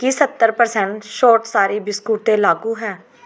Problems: background conversations at intervals